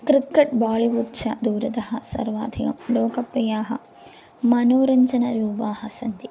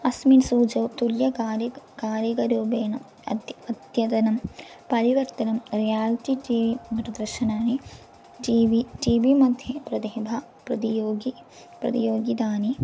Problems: constant background noise